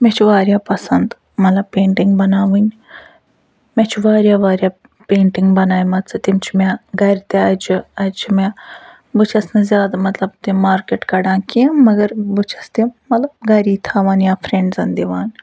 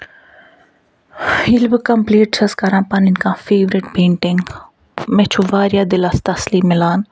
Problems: none marked